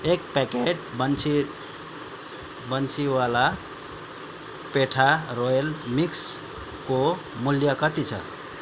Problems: none marked